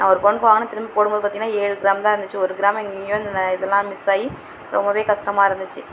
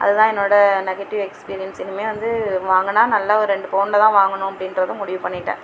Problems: none marked